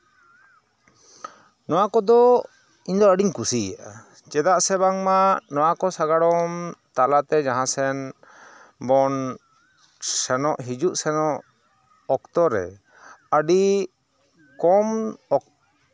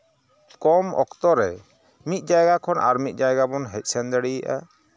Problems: none marked